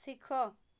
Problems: none marked